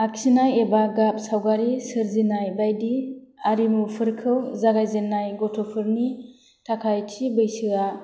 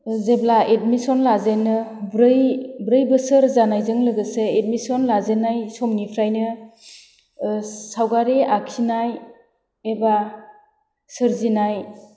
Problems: none marked